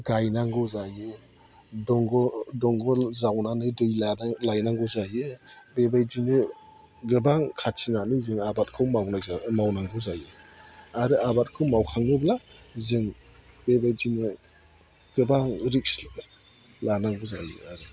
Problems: low volume